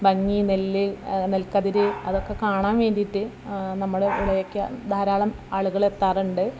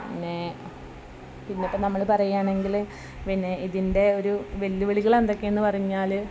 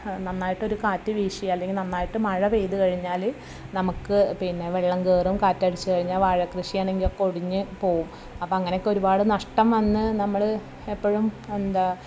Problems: low volume